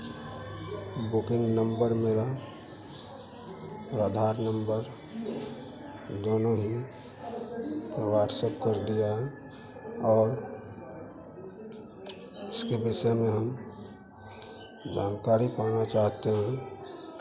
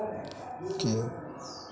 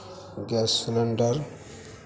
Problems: constant background noise